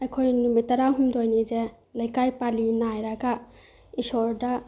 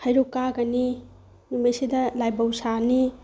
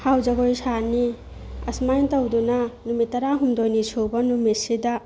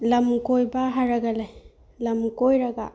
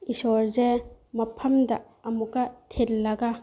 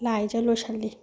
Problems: background sounds at intervals